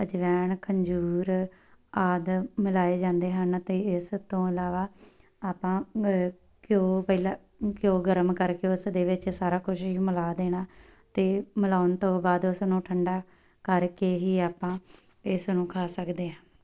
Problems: background sounds at intervals